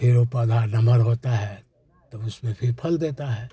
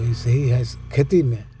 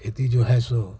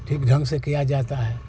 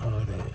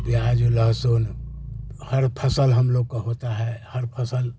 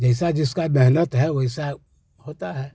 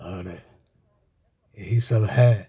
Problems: none marked